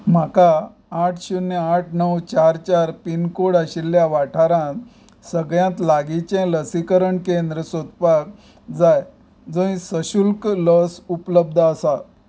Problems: background sounds at intervals